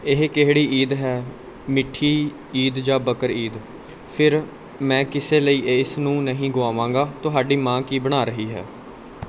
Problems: none marked